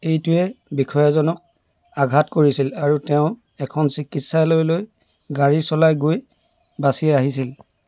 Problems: constant background noise